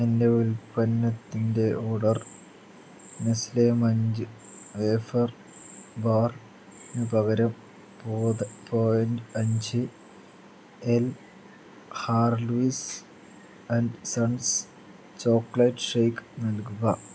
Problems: low volume